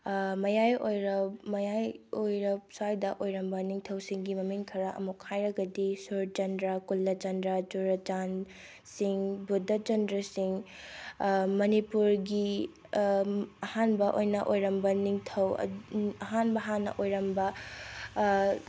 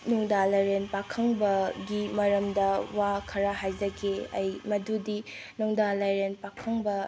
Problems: low volume